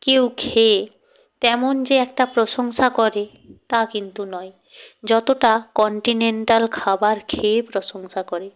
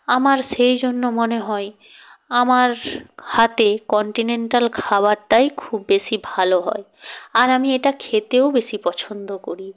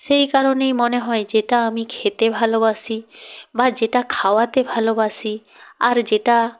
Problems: none marked